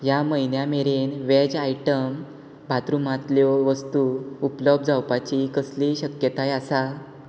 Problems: background sounds at intervals